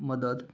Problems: none marked